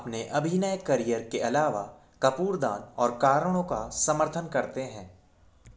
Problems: none marked